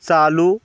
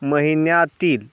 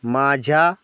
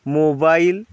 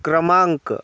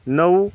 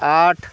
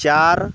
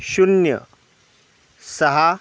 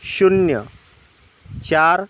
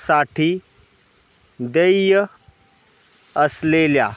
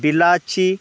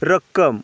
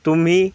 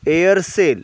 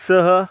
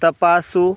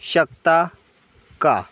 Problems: constant background noise